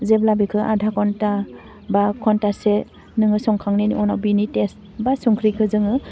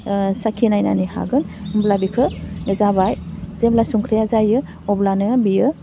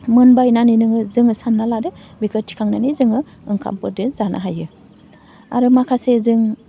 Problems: none marked